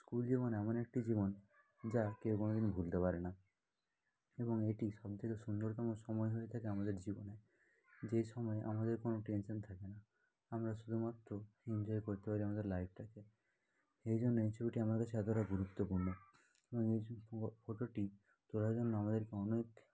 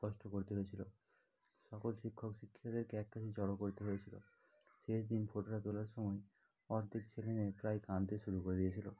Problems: continuous background conversations